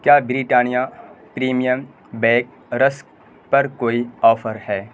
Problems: constant background noise